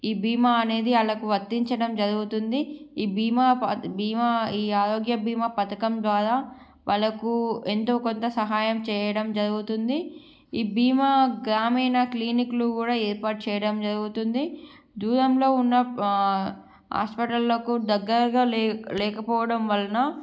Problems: background sounds at intervals